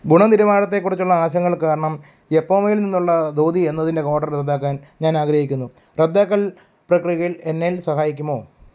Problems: background sounds at intervals